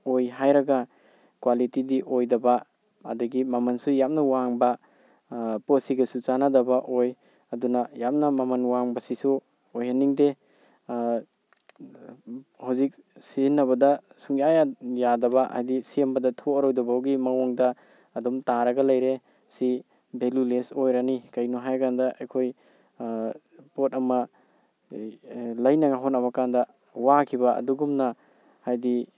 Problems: none marked